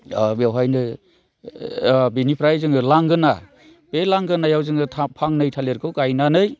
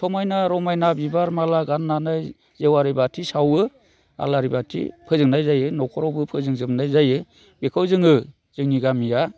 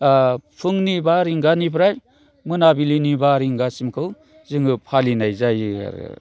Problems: constant background noise